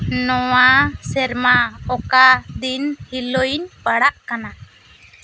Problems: constant background noise